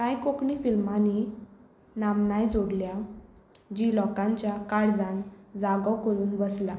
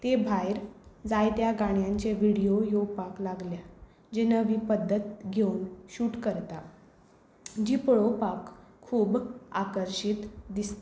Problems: none marked